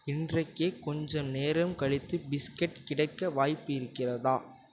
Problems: none marked